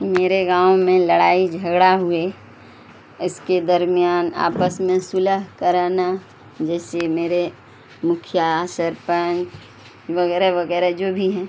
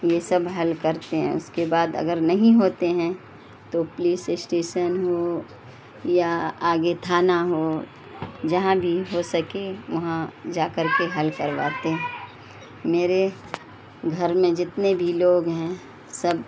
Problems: constant background noise